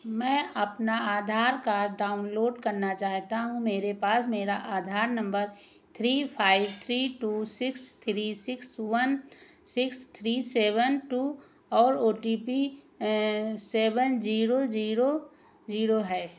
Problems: echo